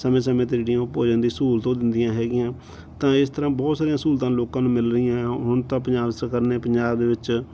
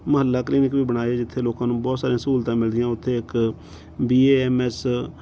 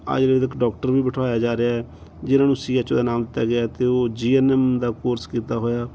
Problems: background sounds at intervals